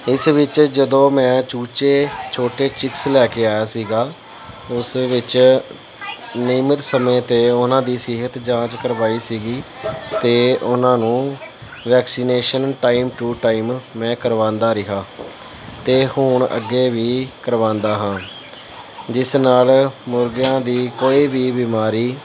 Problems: none marked